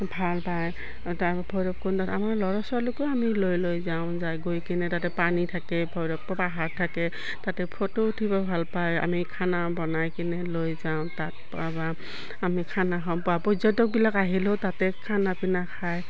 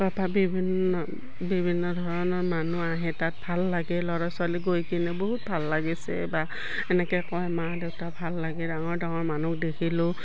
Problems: constant background noise